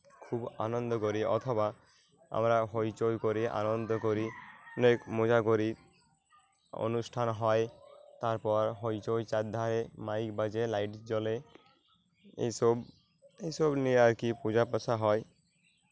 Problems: constant background noise